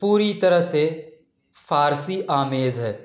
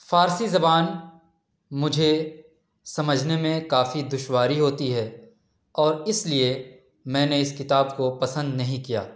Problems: none marked